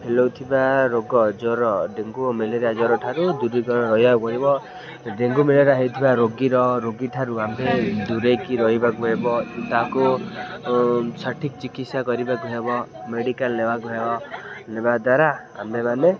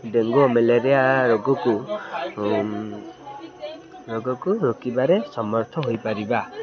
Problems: constant background noise, continuous background conversations